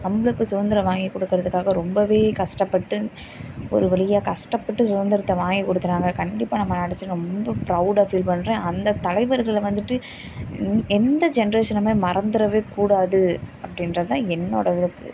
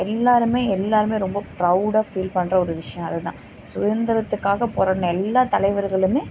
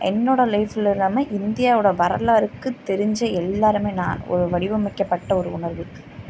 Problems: none marked